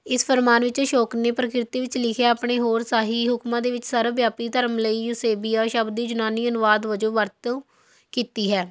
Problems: none marked